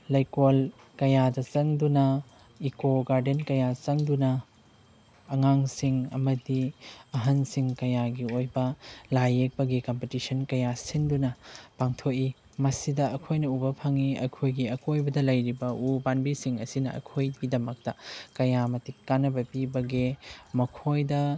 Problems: background sounds at intervals